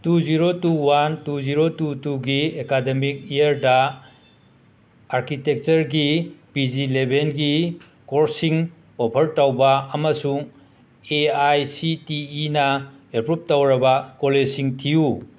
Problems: background sounds at intervals